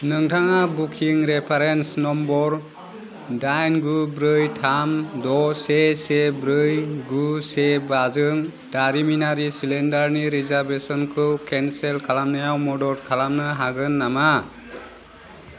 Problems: constant background noise